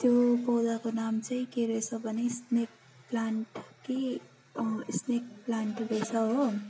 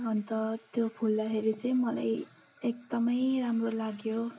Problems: constant background noise